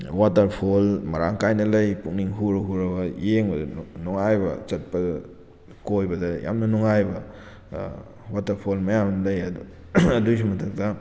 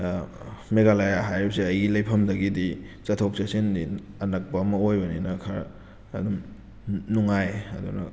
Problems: none marked